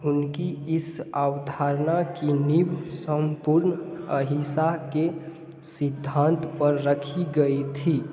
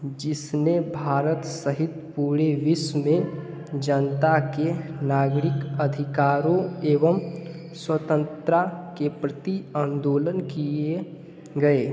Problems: background sounds at intervals